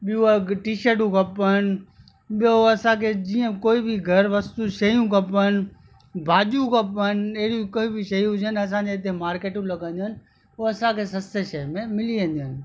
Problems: constant background noise